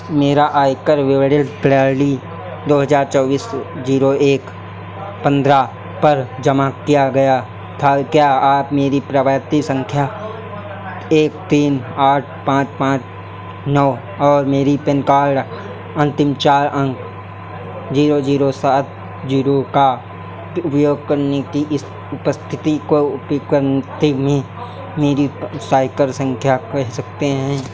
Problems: none marked